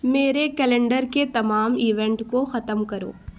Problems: constant background noise